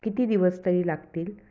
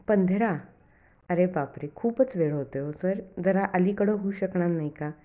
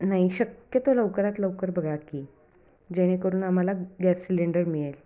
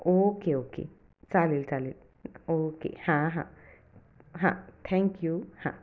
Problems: background sounds at intervals, echo